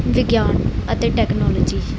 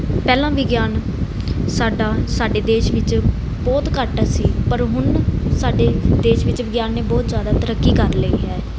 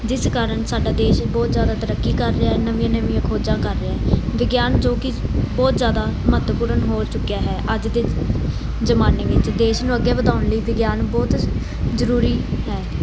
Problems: constant background noise